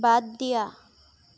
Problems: none marked